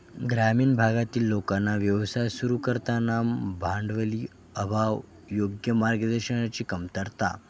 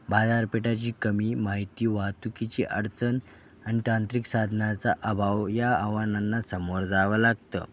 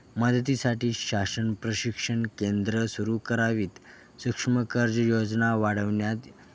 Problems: constant background noise, background conversations at intervals